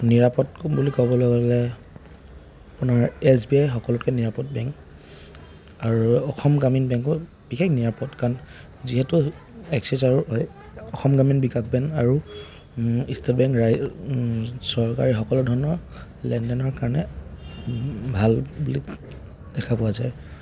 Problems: none marked